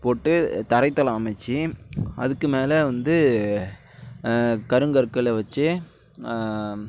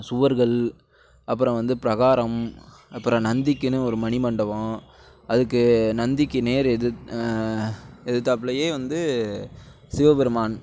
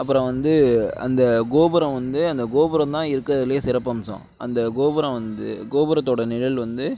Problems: background sounds at intervals